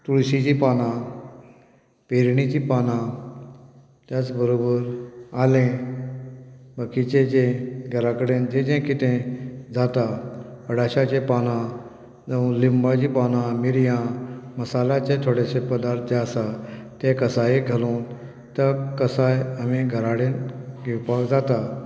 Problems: none marked